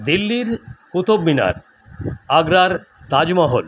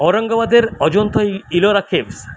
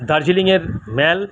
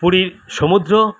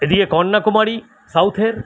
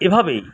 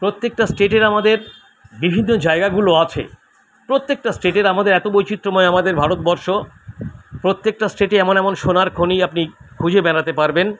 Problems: constant background noise